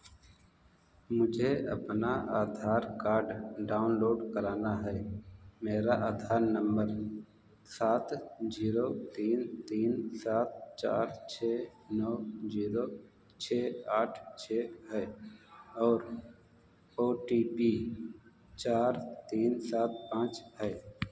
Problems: background sounds at intervals, echo, low volume